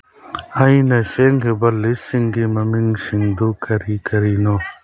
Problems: background sounds at intervals